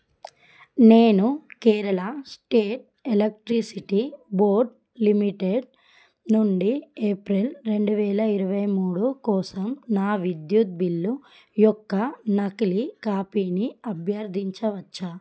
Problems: none marked